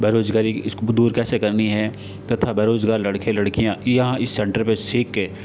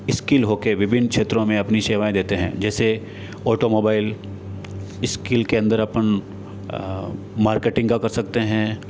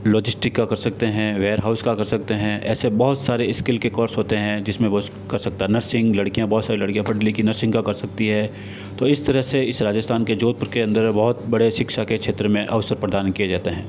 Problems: constant background noise